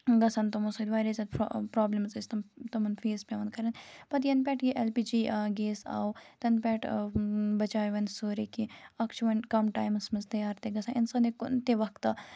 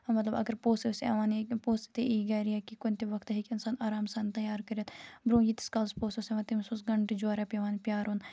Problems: background sounds at intervals